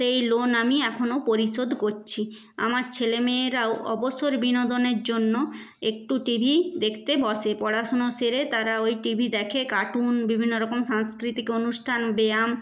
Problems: none marked